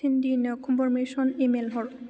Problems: low volume